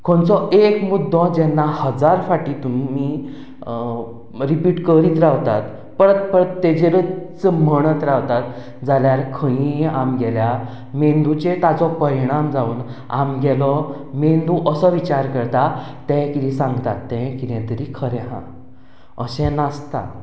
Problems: none marked